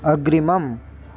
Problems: constant background noise